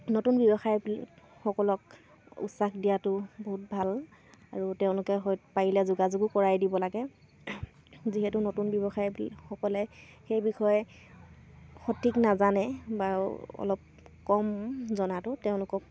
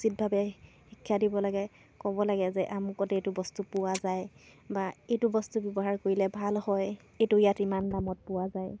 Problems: none marked